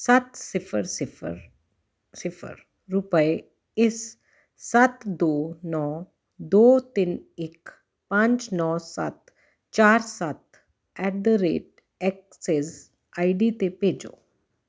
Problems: none marked